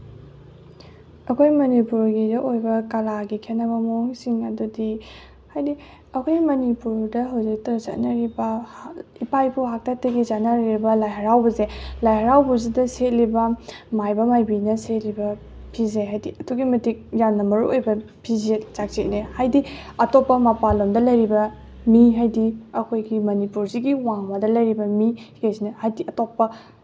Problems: background sounds at intervals